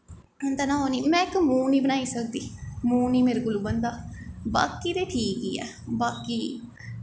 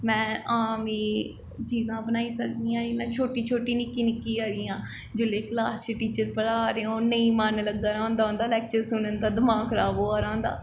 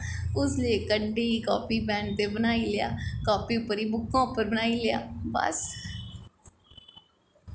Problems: background sounds at intervals, echo